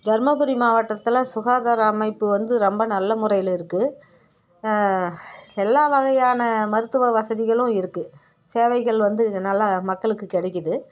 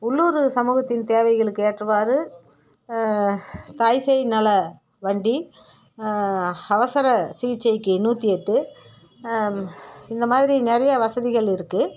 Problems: none marked